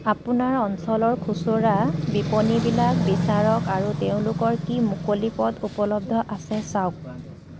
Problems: background sounds at intervals